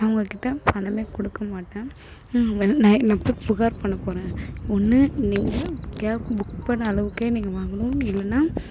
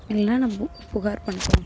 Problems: background sounds at intervals